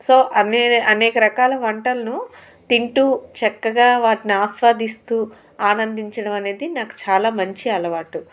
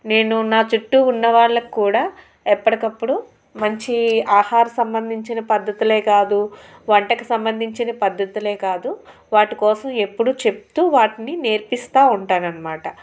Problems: none marked